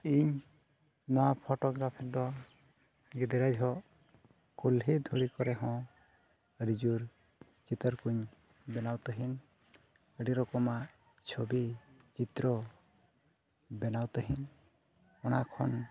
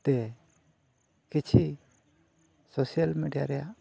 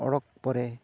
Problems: none marked